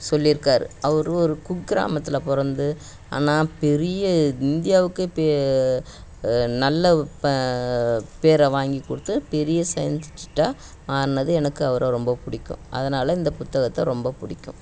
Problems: none marked